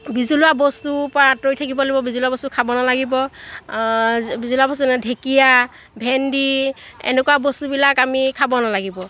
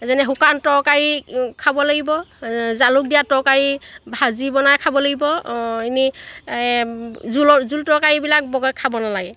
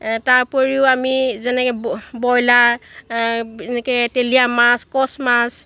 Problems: none marked